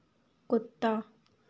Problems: constant background noise